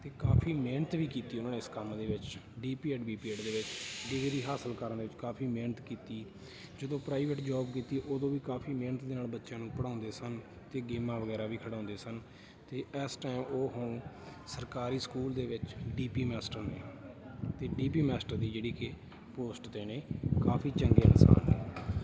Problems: continuous background conversations